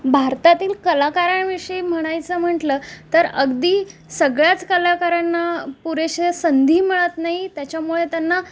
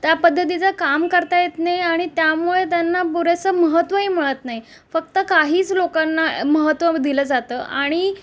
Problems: background sounds at intervals